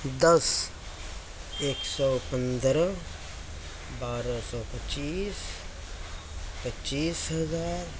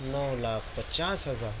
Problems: constant background noise